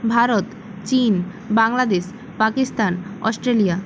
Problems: constant background noise